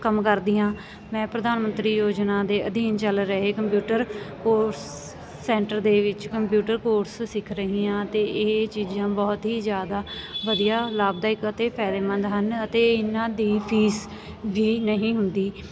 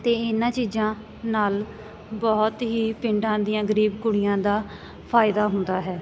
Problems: none marked